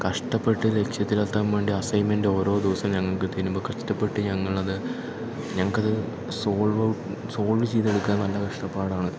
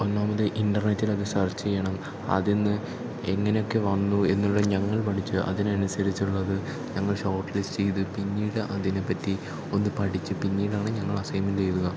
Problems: background sounds at intervals